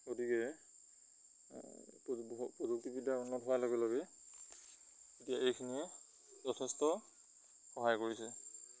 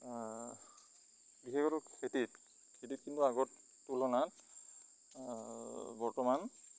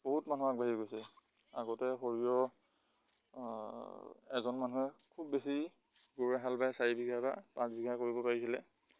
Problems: constant background noise